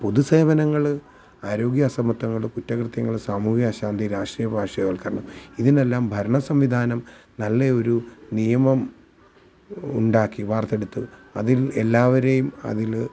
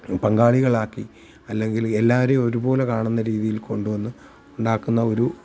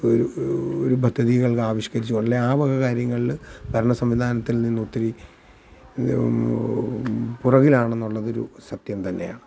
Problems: none marked